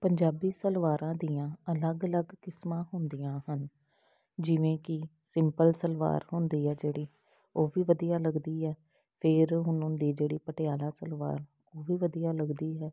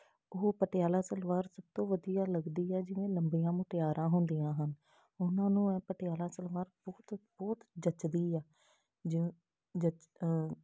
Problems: background sounds at intervals